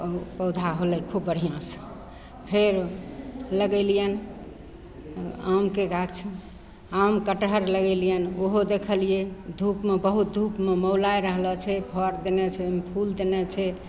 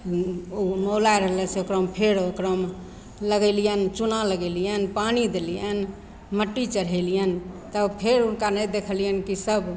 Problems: none marked